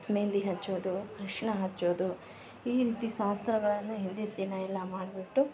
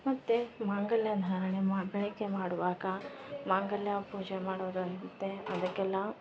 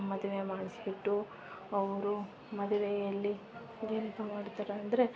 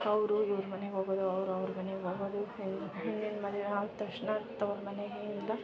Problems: background sounds at intervals